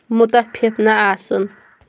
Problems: constant background noise